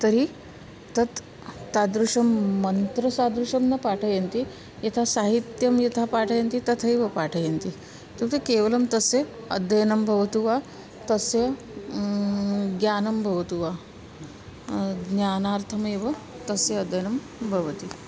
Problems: constant background noise, continuous background conversations